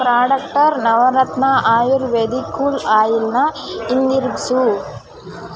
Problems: constant background noise